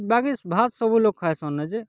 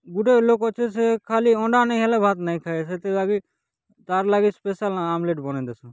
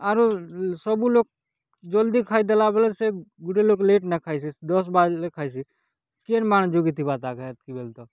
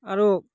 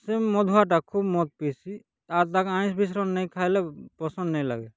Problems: none marked